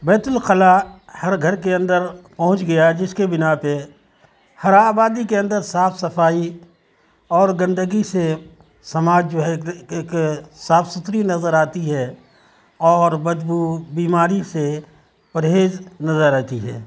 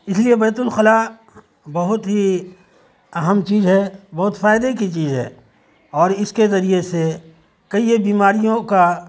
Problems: constant background noise